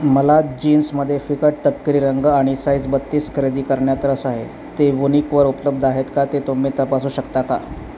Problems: constant background noise